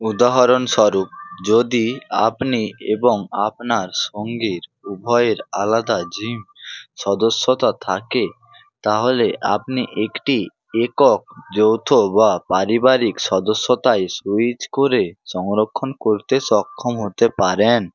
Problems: constant background noise